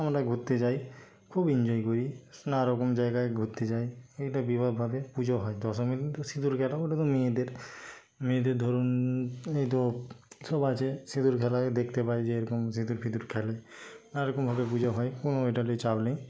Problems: constant background noise, background conversations at intervals